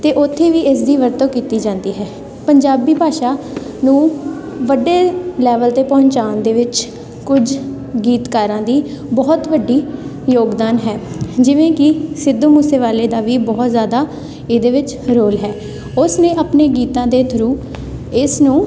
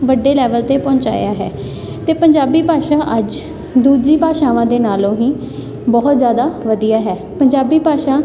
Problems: none marked